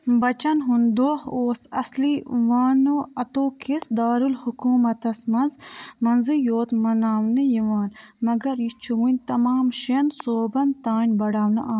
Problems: none marked